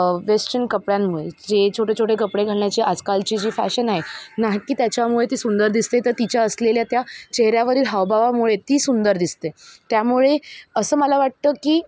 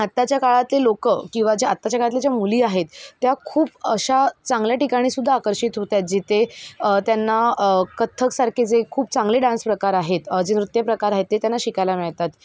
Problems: none marked